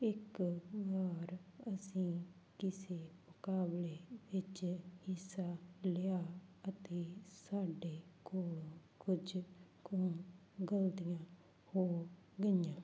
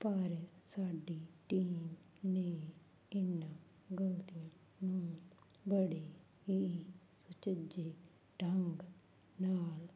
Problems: none marked